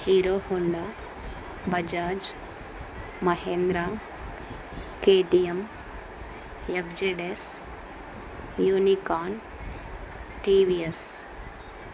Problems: constant background noise